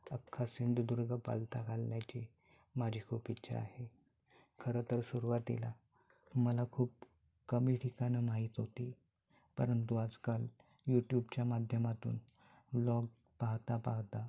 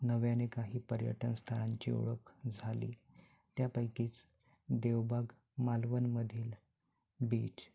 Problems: background sounds at intervals